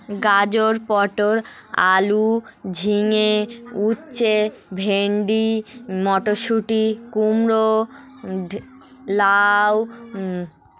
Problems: none marked